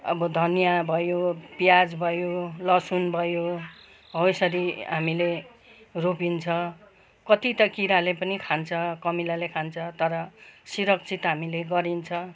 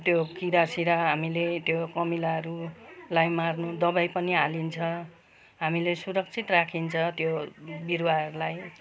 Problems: background sounds at intervals